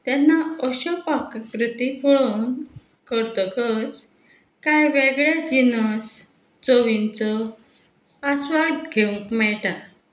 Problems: background sounds at intervals